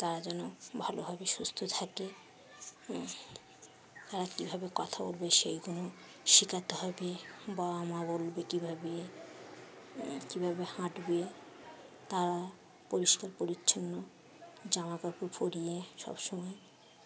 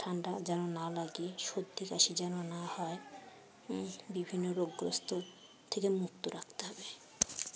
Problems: none marked